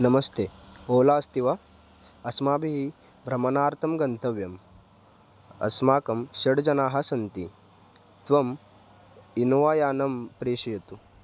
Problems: constant background noise